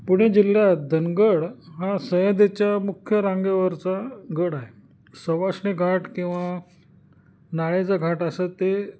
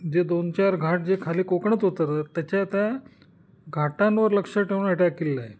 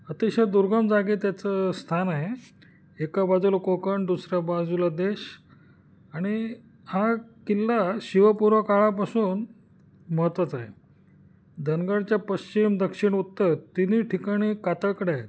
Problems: constant background noise